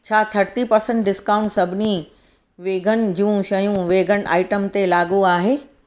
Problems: none marked